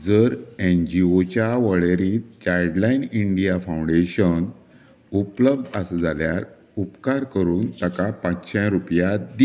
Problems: background sounds at intervals